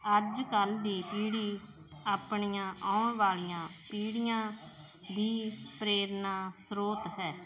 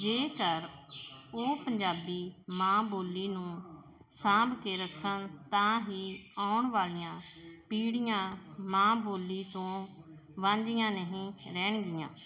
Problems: none marked